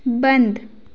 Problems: none marked